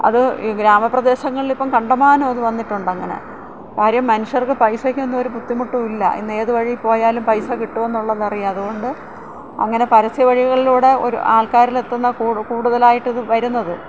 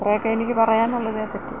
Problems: none marked